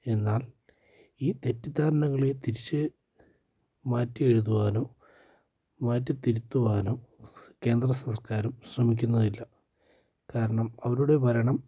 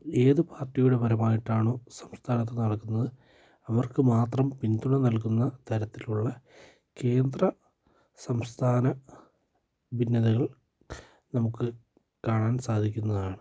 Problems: low volume